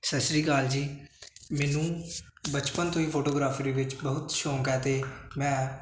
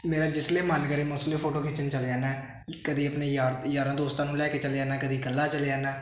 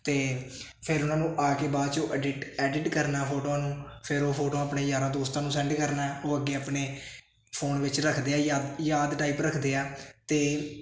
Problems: constant background noise